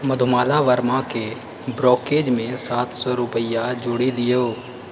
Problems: background sounds at intervals